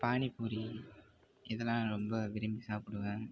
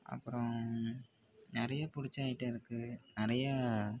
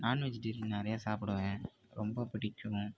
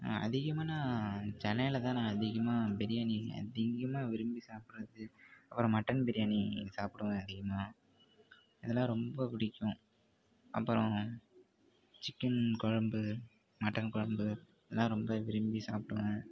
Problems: constant background noise, low volume